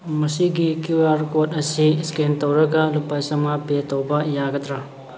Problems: background sounds at intervals